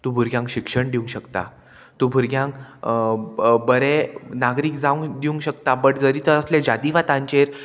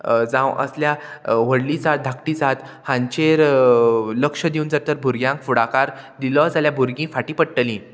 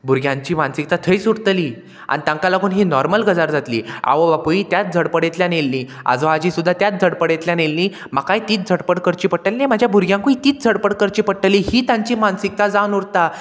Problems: constant background noise